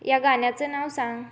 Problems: none marked